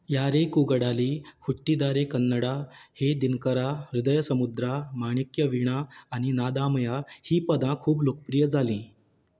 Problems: background sounds at intervals